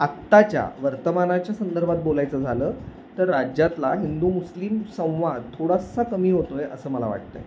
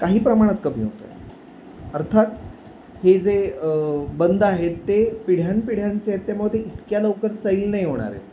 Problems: constant background noise